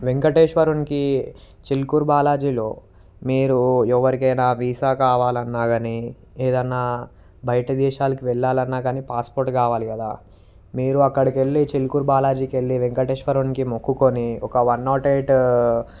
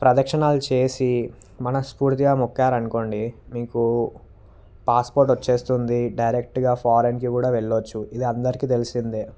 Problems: none marked